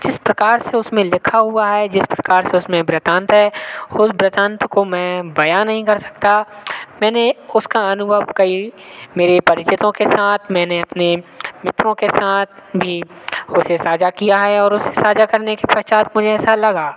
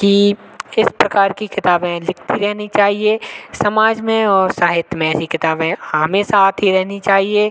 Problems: none marked